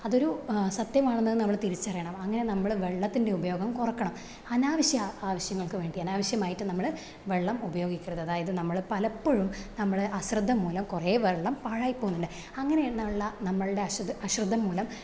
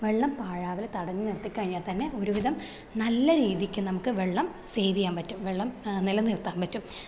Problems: none marked